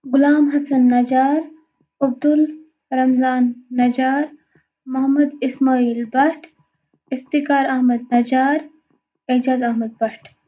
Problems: background sounds at intervals